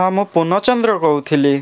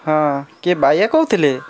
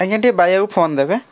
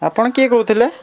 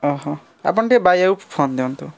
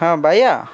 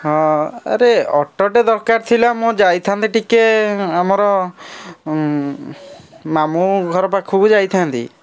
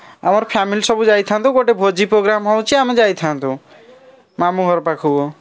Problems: constant background noise